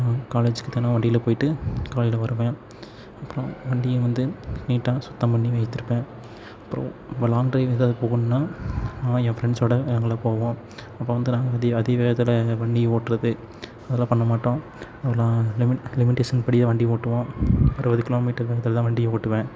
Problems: none marked